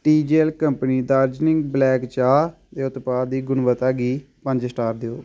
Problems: none marked